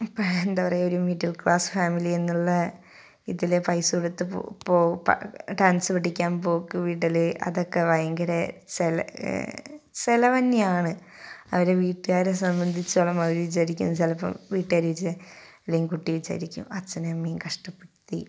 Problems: none marked